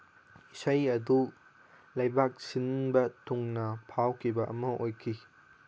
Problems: background sounds at intervals